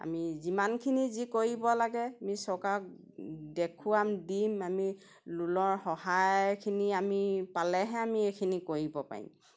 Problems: none marked